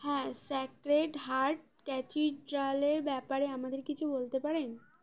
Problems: background conversations at intervals